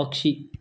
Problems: background sounds at intervals